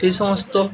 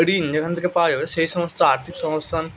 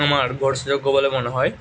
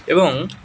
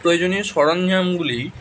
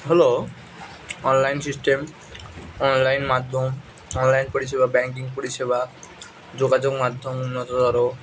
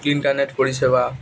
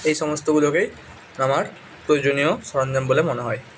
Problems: constant background noise, continuous background conversations